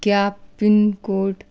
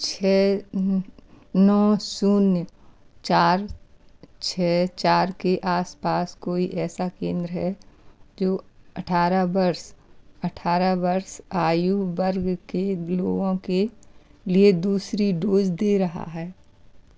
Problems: none marked